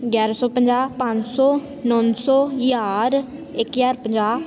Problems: continuous background conversations